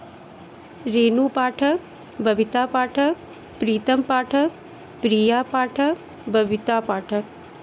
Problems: constant background noise